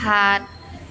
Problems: constant background noise